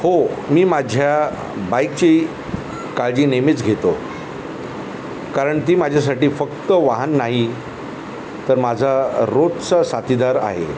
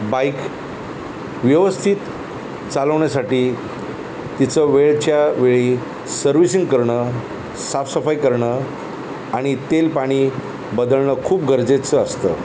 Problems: constant background noise